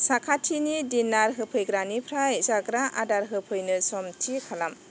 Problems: constant background noise